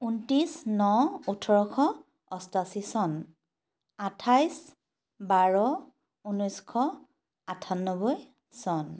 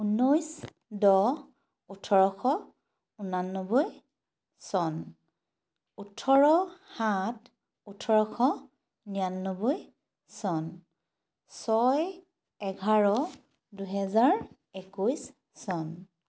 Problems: constant background noise